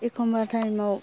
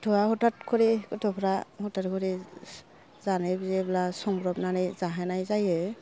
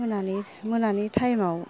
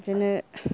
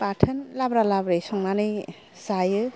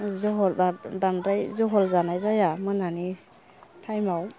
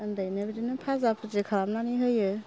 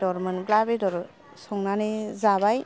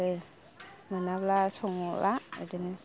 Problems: low volume